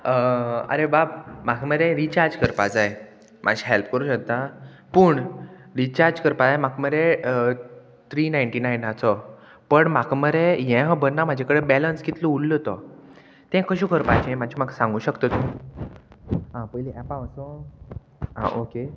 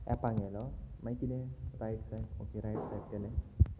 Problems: none marked